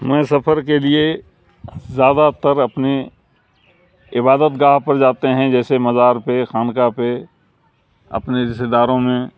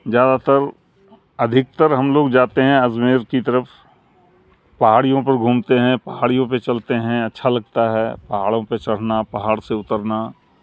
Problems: constant background noise